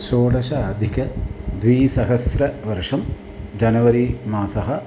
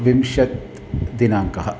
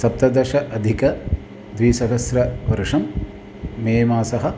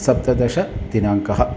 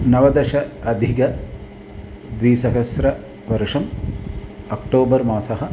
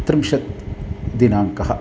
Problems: constant background noise, background conversations at intervals